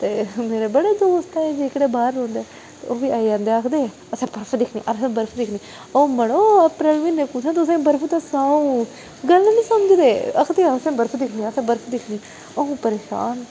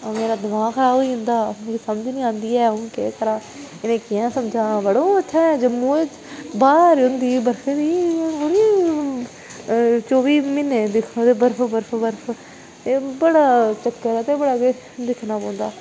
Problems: constant background noise